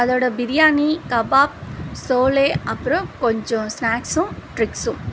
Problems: constant background noise